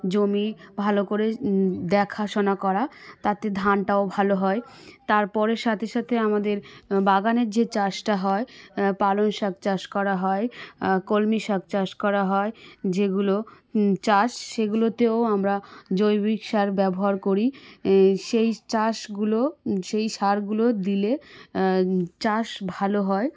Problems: background sounds at intervals